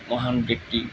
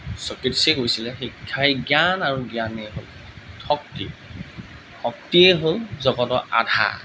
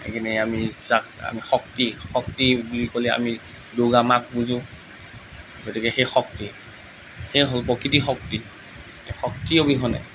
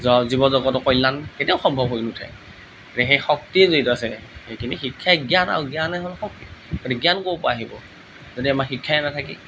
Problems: none marked